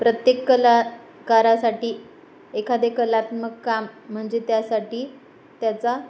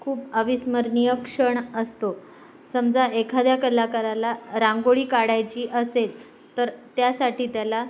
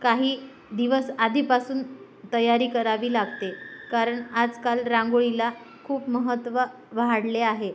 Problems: none marked